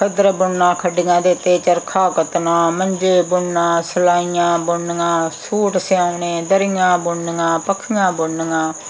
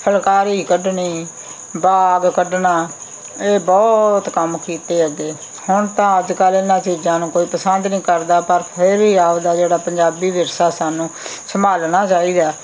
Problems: background sounds at intervals